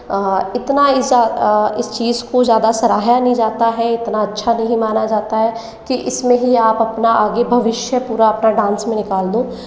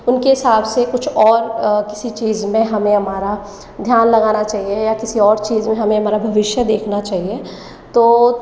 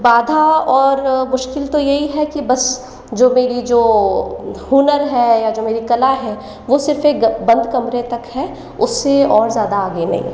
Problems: none marked